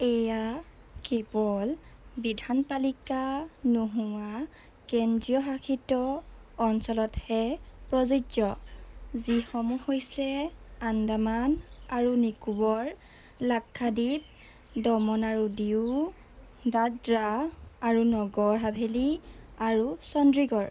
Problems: constant background noise